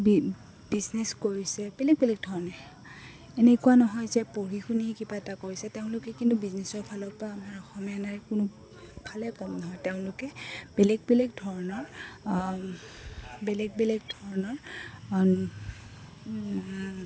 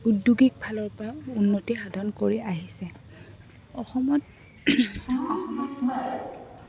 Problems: constant background noise, background conversations at intervals